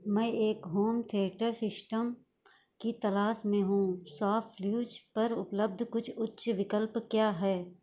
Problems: background sounds at intervals